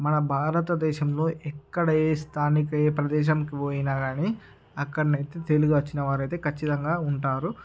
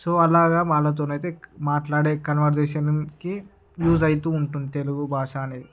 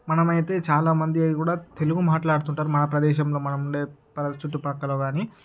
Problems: background sounds at intervals